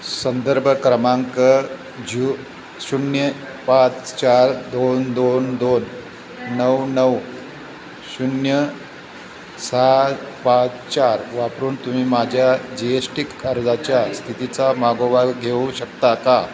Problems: constant background noise, continuous background conversations